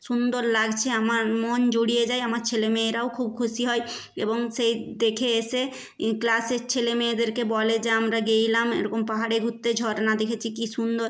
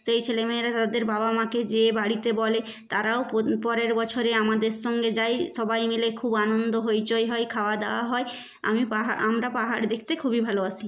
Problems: none marked